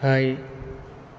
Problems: constant background noise